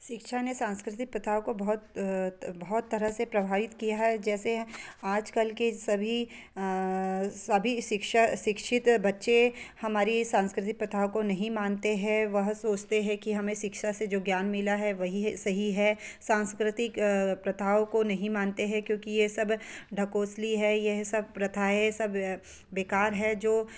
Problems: background sounds at intervals